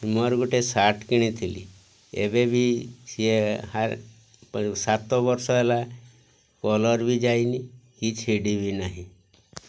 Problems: none marked